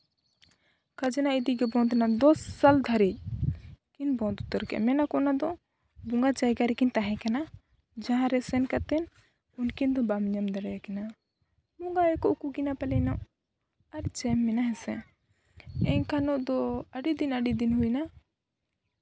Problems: background sounds at intervals